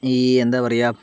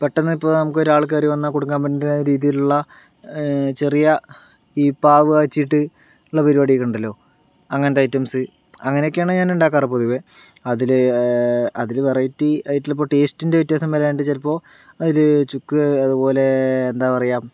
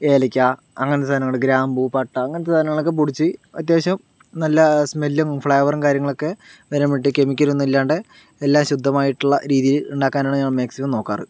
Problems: none marked